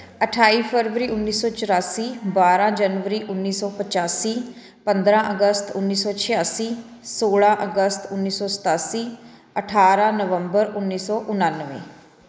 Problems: continuous background conversations